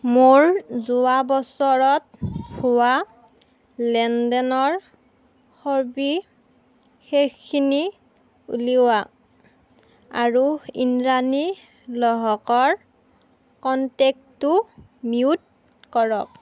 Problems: background sounds at intervals